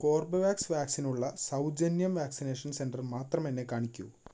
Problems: none marked